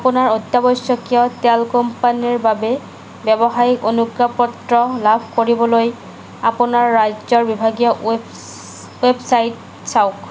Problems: constant background noise